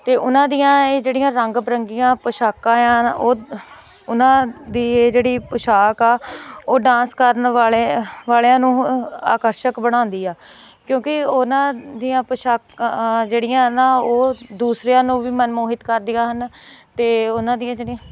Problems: none marked